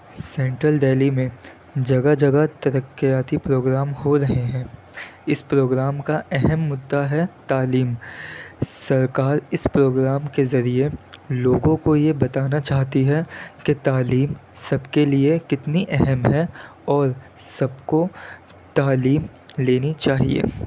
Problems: constant background noise